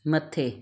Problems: none marked